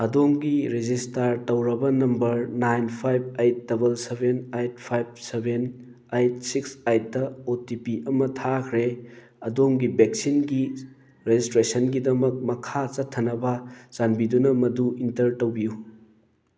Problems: background sounds at intervals